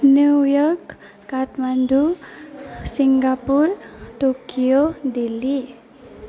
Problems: constant background noise, background conversations at intervals